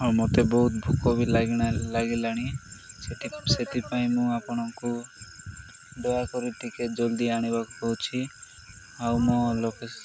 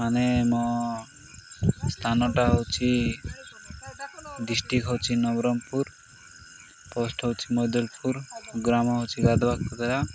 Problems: constant background noise, background conversations at intervals